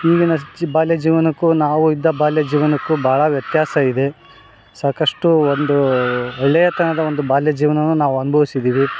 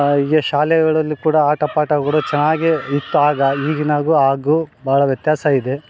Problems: background sounds at intervals